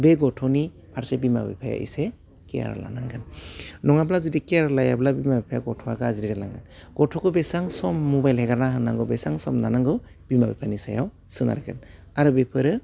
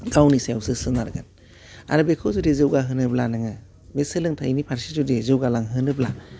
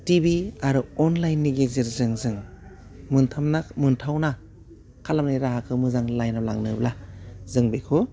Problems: none marked